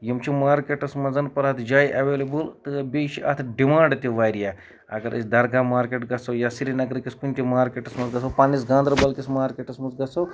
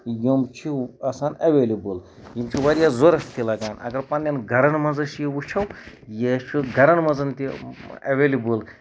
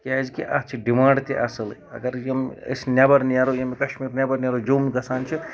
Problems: background sounds at intervals